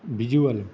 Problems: none marked